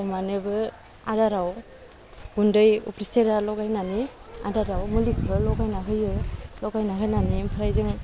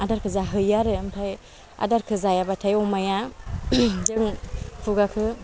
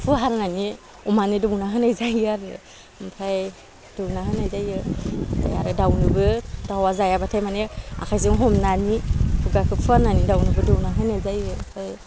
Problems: low volume